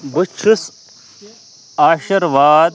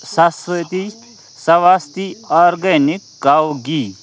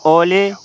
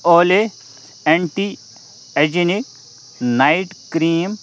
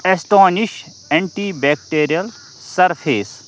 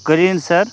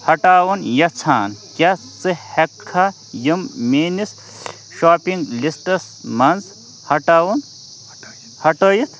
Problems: constant background noise, background conversations at intervals